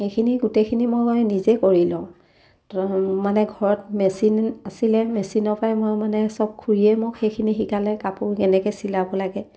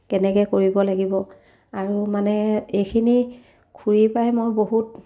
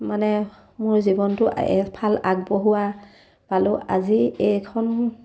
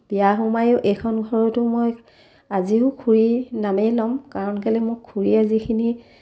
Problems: none marked